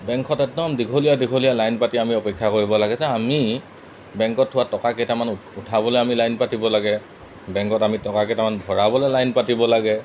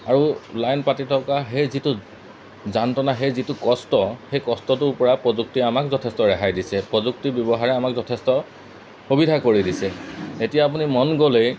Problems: constant background noise